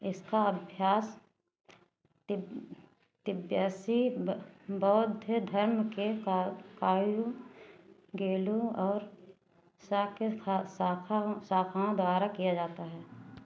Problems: constant background noise